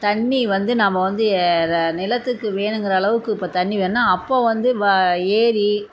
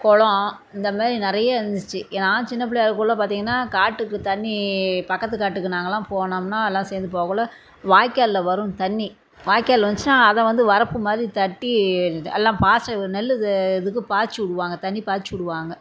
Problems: none marked